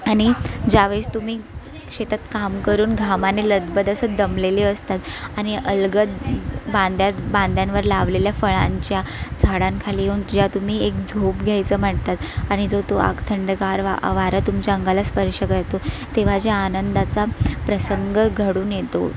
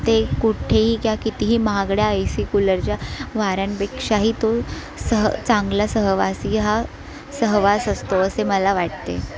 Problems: constant background noise, continuous background conversations